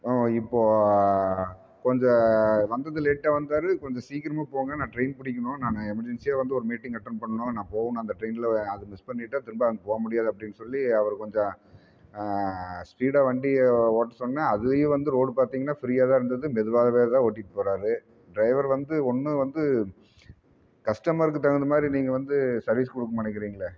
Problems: none marked